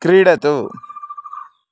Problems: background sounds at intervals